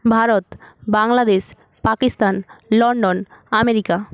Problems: none marked